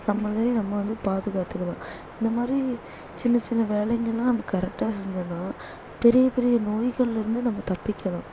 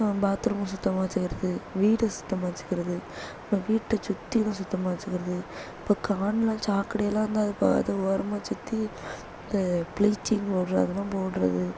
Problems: low volume